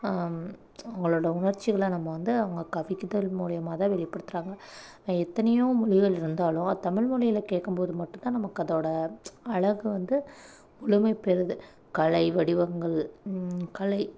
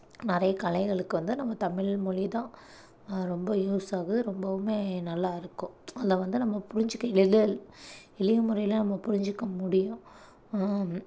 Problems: none marked